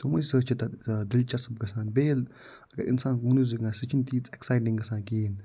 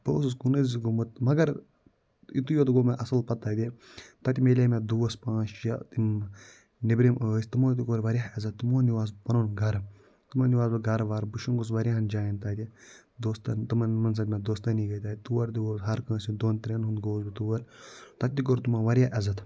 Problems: low volume